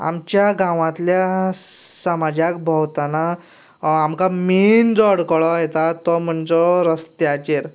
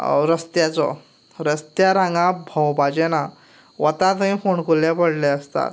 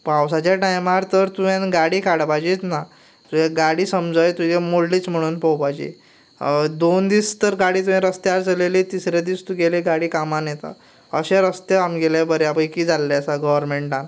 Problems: background sounds at intervals